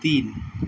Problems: background sounds at intervals